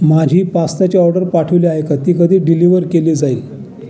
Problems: constant background noise, continuous background conversations